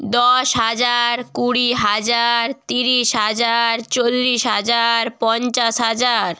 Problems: none marked